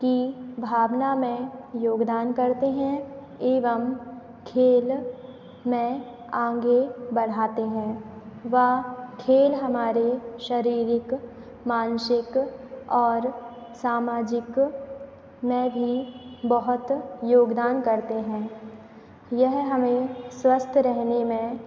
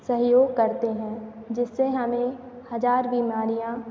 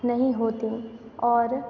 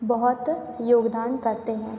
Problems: constant background noise